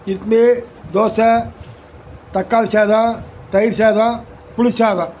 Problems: constant background noise